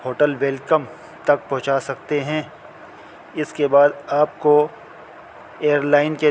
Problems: constant background noise